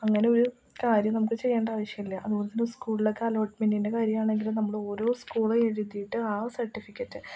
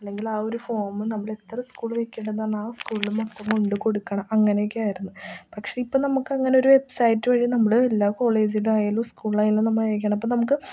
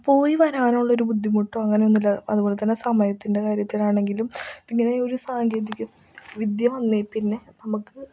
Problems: low volume